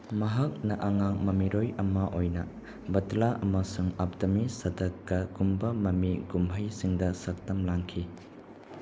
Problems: constant background noise